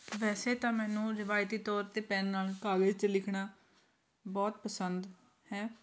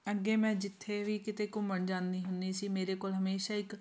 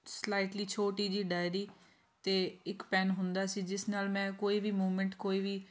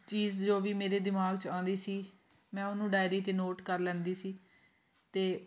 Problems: continuous background conversations